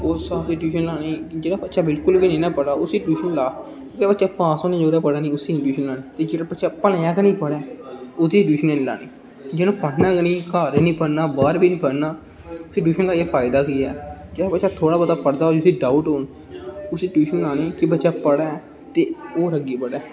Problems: constant background noise